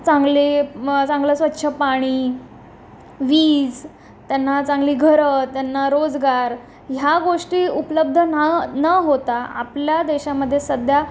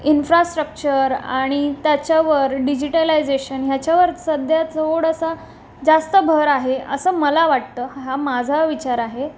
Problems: constant background noise